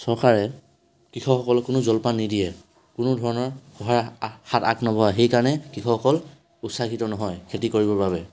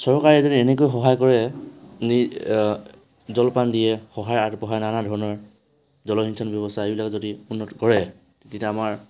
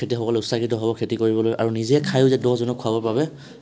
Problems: constant background noise